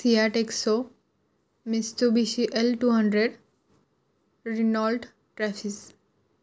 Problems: none marked